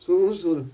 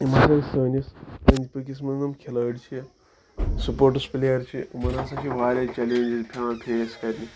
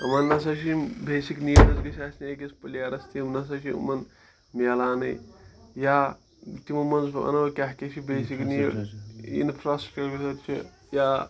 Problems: continuous background conversations